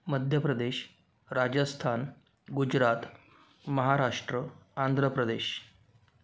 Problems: background sounds at intervals